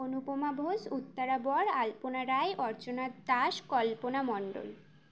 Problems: none marked